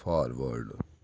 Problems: none marked